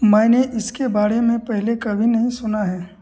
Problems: none marked